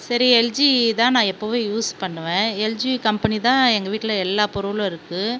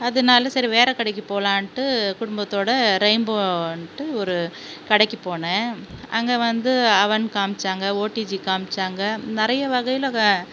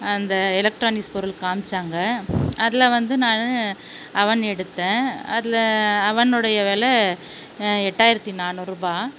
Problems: none marked